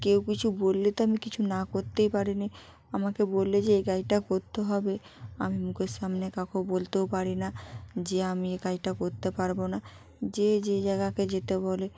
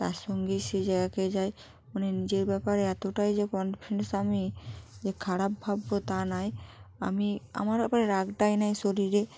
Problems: background sounds at intervals